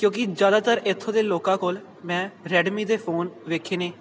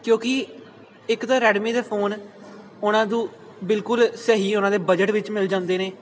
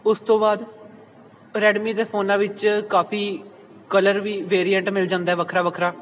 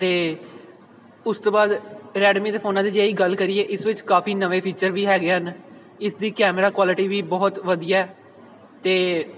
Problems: background sounds at intervals